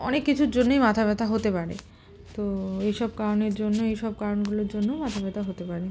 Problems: none marked